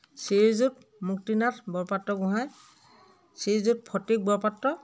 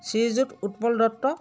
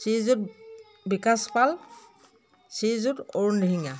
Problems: continuous background conversations